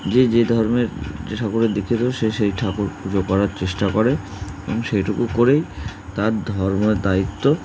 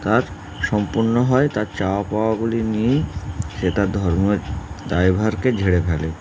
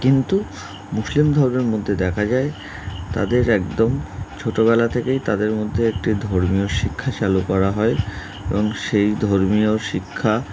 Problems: none marked